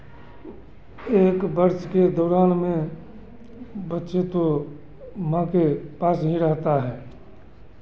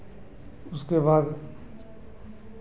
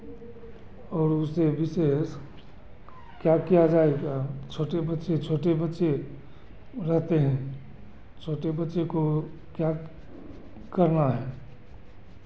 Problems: constant background noise